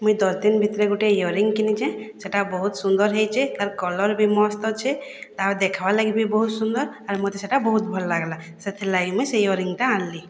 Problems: none marked